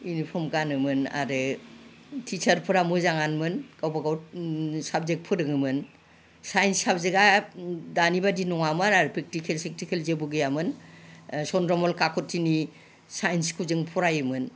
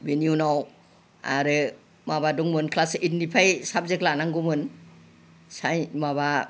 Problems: none marked